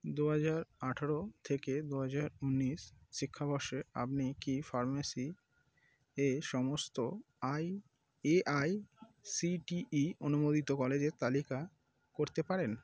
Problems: none marked